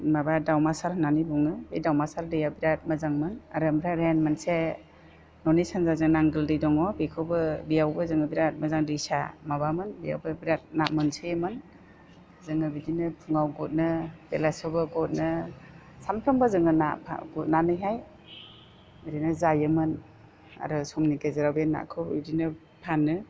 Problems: constant background noise